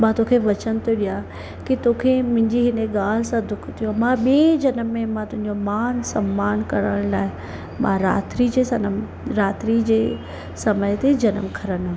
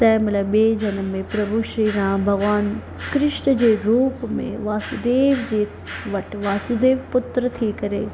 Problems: constant background noise